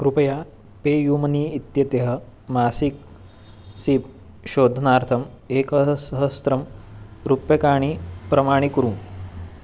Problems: constant background noise